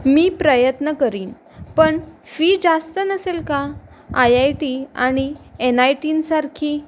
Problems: constant background noise, continuous background conversations